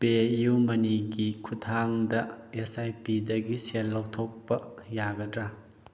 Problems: none marked